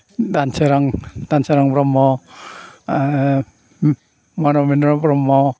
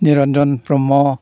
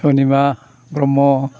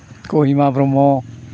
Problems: constant background noise